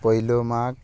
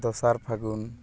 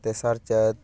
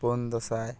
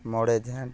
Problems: constant background noise